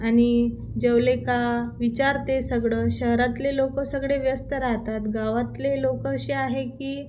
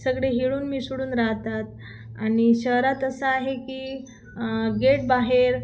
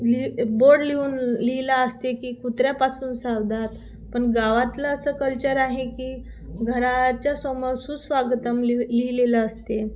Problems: constant background noise